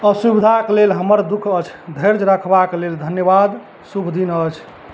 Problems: none marked